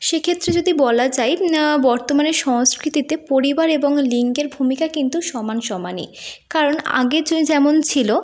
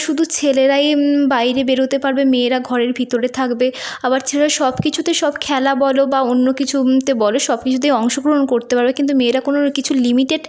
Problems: none marked